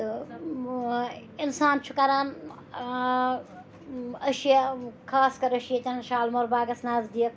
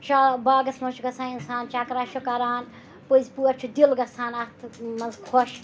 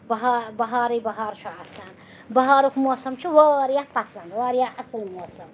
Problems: constant background noise, background conversations at intervals